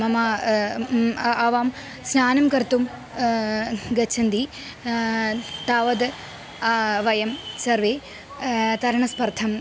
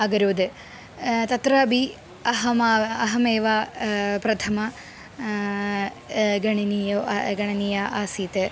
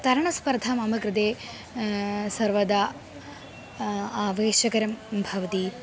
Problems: constant background noise